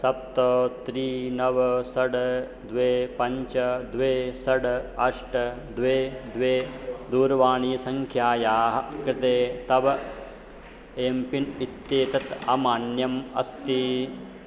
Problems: constant background noise